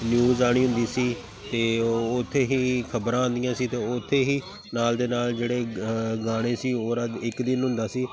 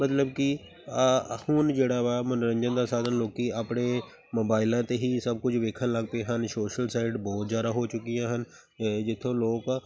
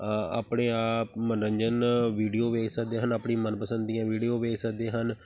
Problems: none marked